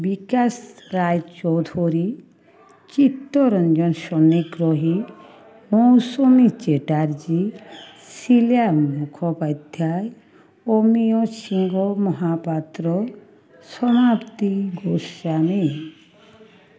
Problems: constant background noise, continuous background conversations